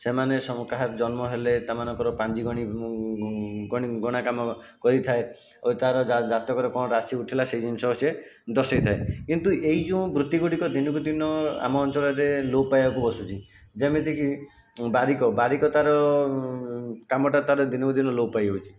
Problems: constant background noise